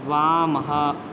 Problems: none marked